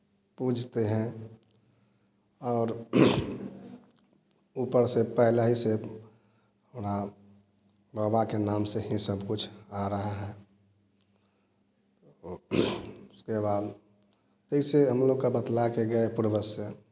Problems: constant background noise